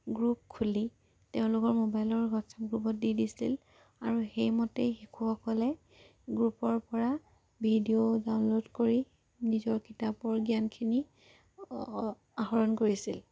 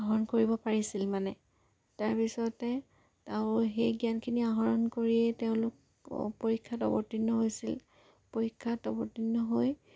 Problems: low volume